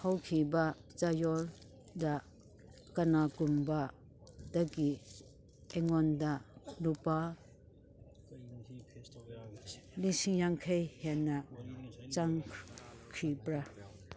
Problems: background conversations at intervals